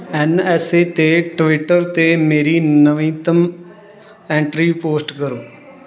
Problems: continuous background conversations